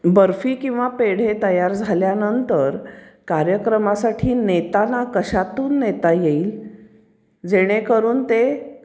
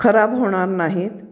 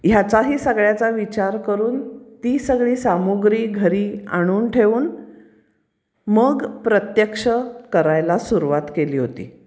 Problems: none marked